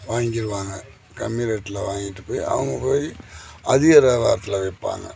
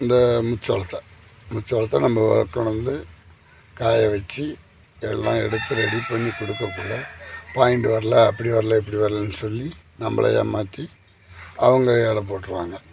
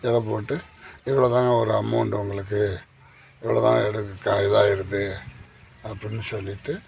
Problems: constant background noise